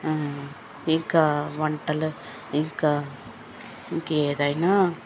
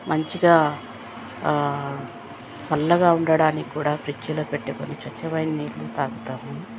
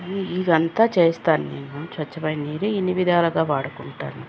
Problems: constant background noise